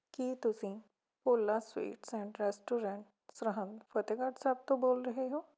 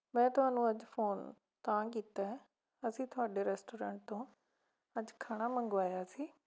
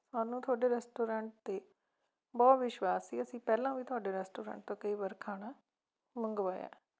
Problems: background sounds at intervals